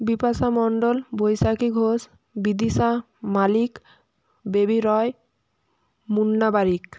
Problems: constant background noise